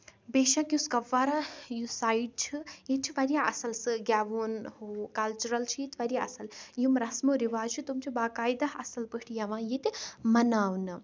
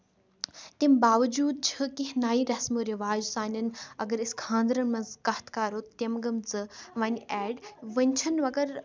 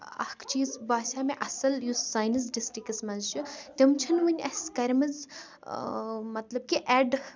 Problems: none marked